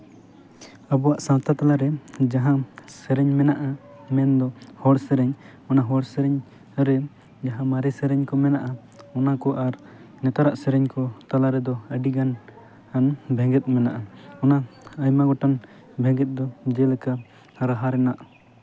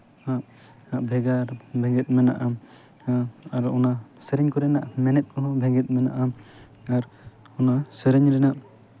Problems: constant background noise